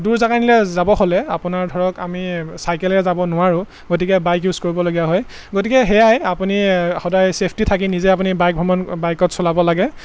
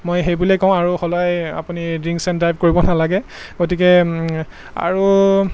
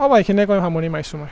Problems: constant background noise